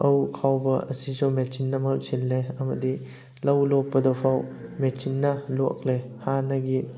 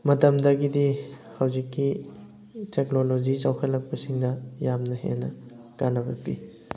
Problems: background sounds at intervals, background conversations at intervals